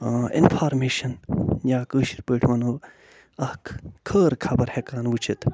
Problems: none marked